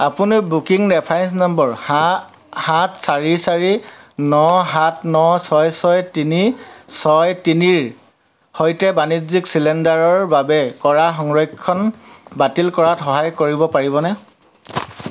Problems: constant background noise, continuous background conversations